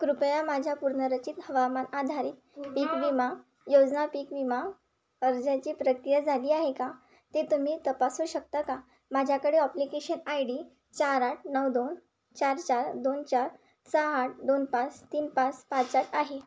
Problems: constant background noise, background conversations at intervals